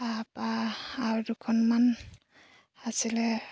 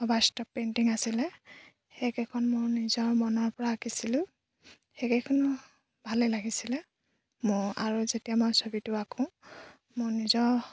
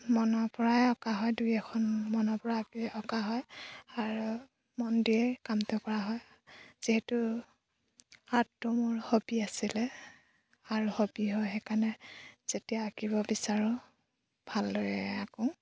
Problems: background sounds at intervals